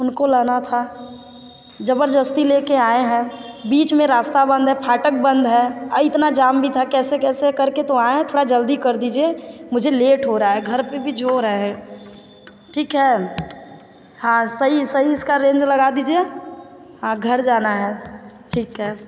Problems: echo